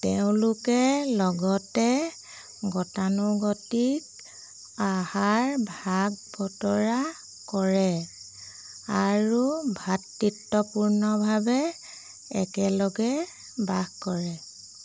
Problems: none marked